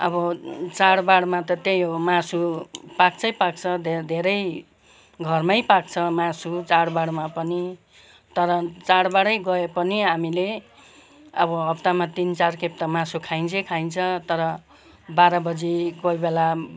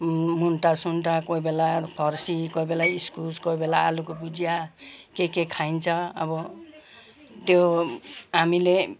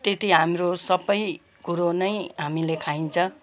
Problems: continuous background conversations